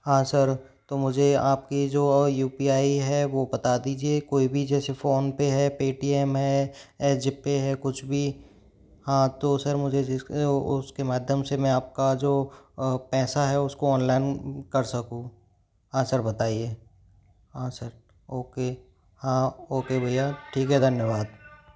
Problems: background conversations at intervals